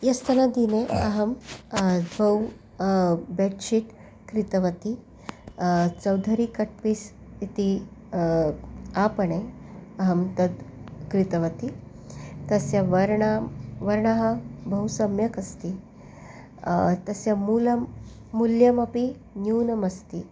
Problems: none marked